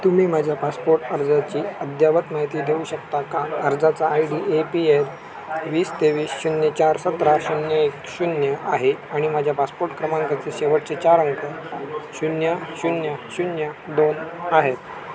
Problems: constant background noise, continuous background conversations